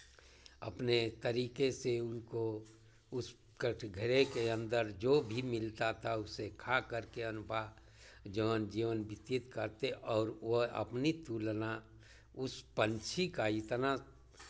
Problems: constant background noise